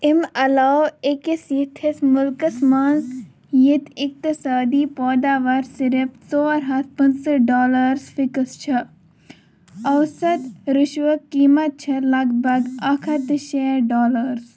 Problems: none marked